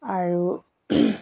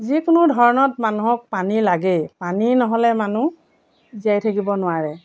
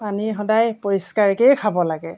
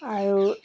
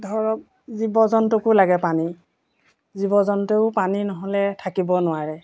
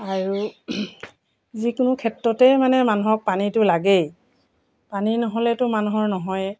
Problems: background sounds at intervals